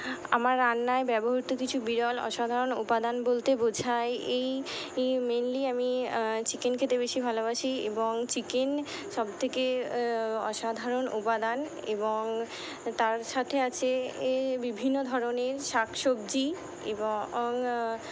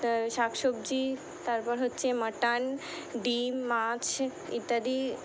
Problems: none marked